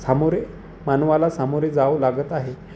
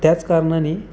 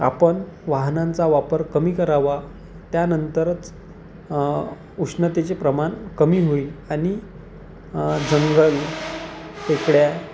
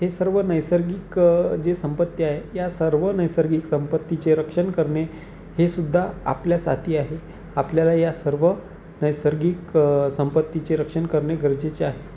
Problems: none marked